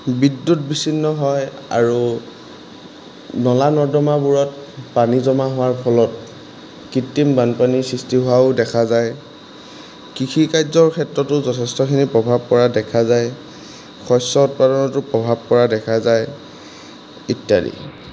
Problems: constant background noise